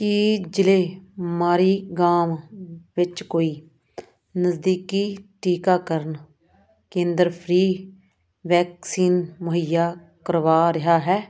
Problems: none marked